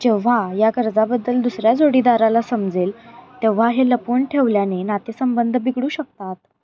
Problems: constant background noise, continuous background conversations